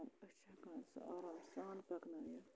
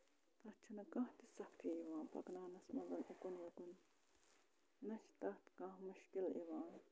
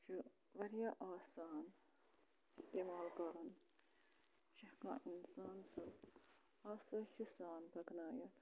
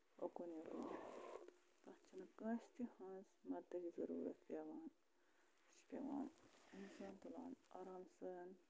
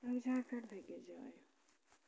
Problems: low volume